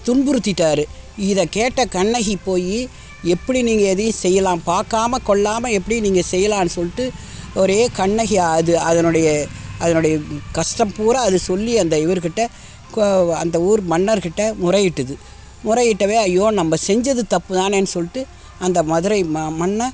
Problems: constant background noise